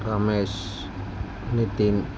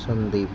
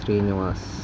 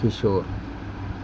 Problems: constant background noise